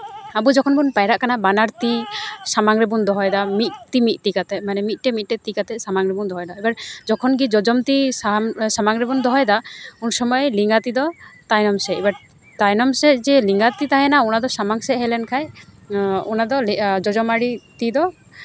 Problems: background sounds at intervals, background conversations at intervals